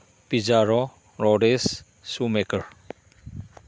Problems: none marked